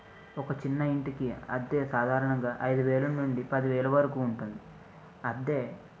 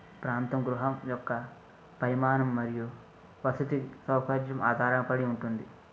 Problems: none marked